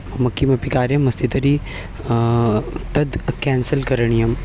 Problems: constant background noise